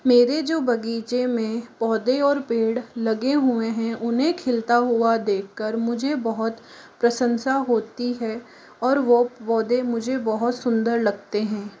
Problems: constant background noise